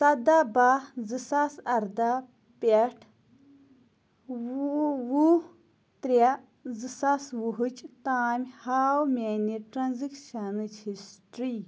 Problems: constant background noise